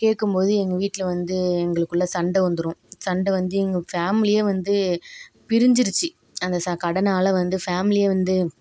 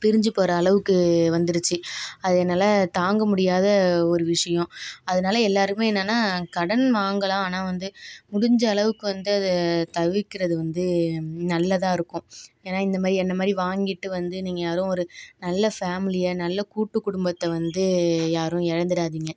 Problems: none marked